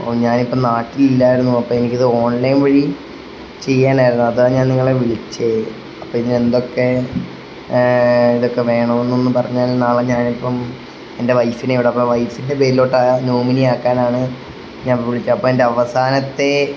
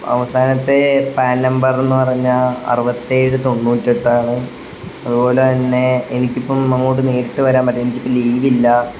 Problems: constant background noise